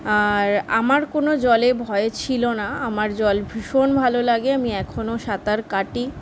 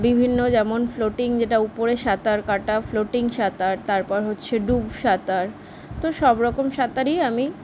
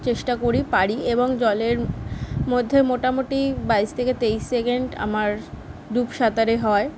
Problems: constant background noise